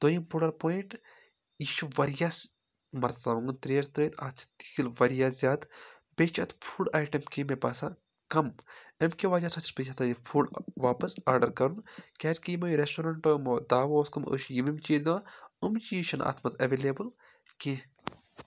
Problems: none marked